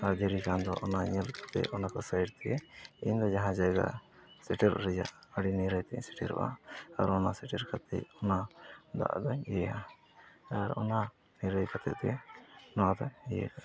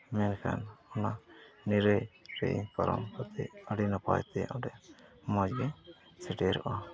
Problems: low volume